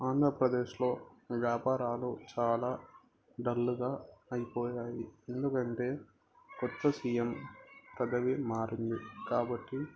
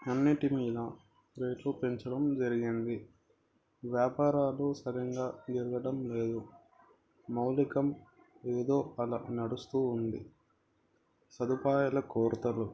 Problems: background conversations at intervals, low volume